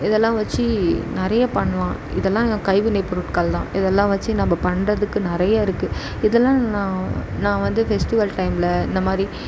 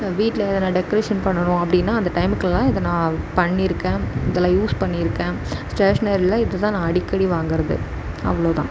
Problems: none marked